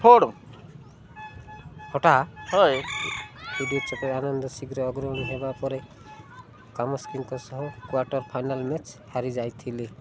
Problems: constant background noise